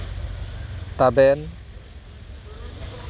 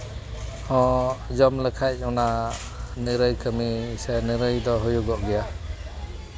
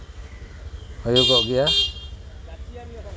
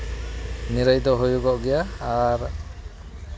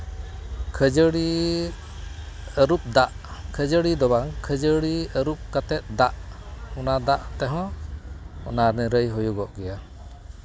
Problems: none marked